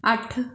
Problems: background sounds at intervals